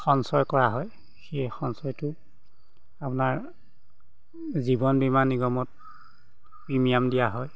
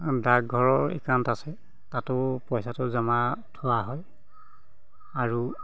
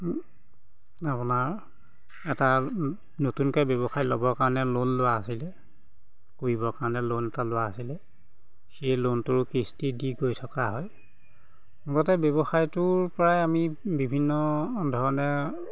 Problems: background sounds at intervals